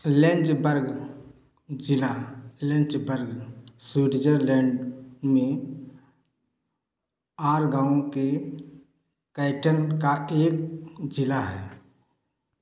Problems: echo